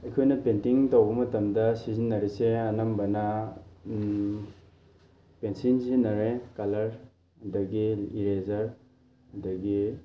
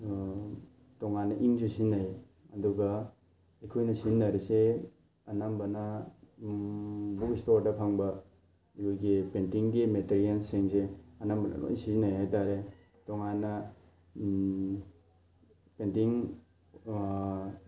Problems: constant background noise